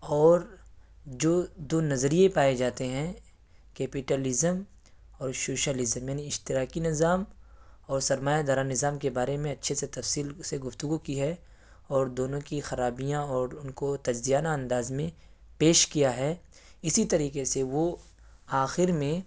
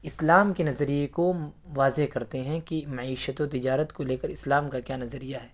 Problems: none marked